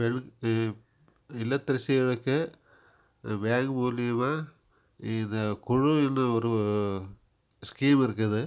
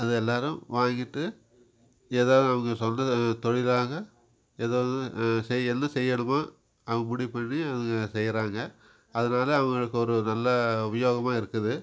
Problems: background sounds at intervals